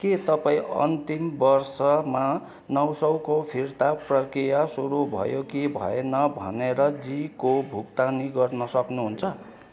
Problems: constant background noise